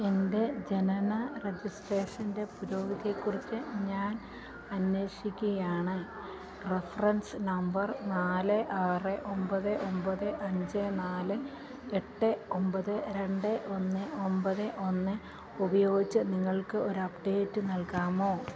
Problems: none marked